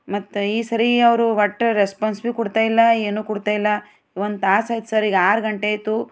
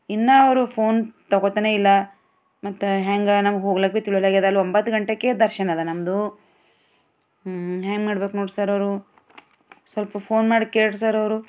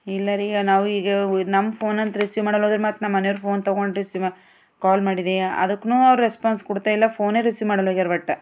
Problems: none marked